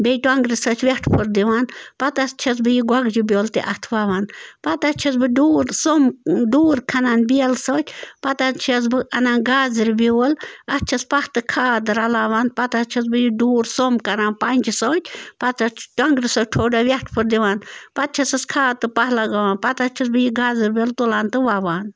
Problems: constant background noise